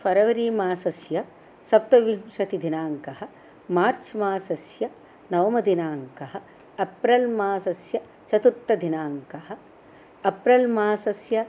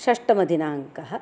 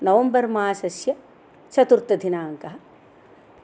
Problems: none marked